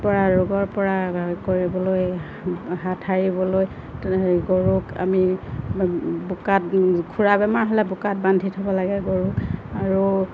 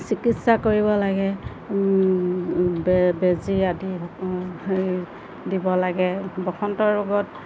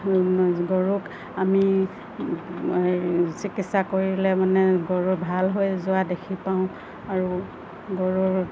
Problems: constant background noise, low volume